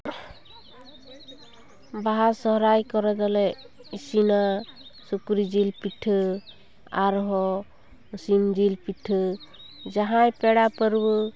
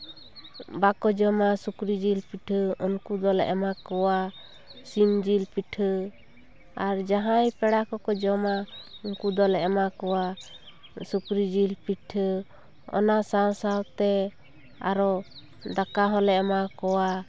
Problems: constant background noise